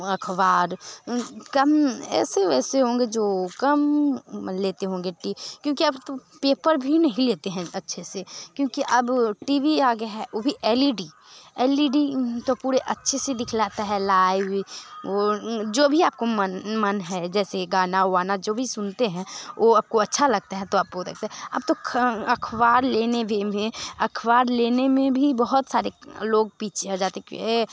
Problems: none marked